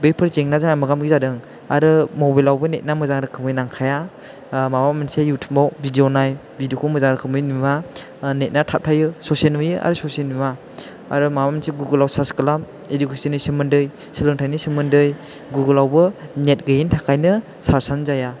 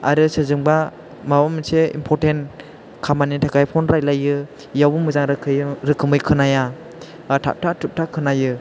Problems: constant background noise